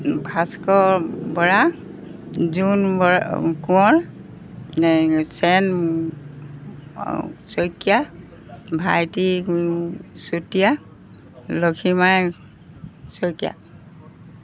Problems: background sounds at intervals